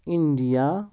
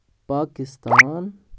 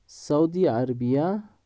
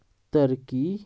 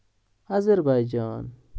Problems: background sounds at intervals